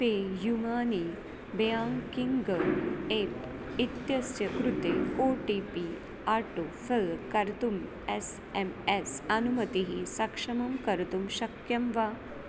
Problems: constant background noise, low volume